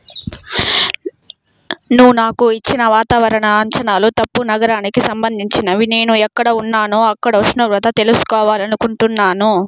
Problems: background sounds at intervals